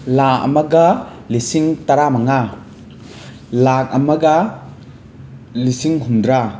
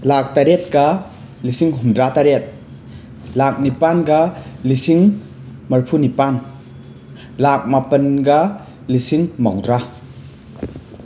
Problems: constant background noise